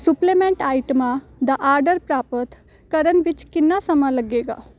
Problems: constant background noise